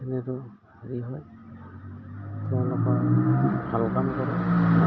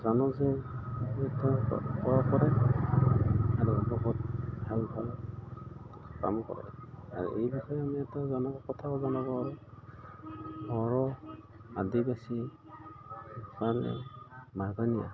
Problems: background sounds at intervals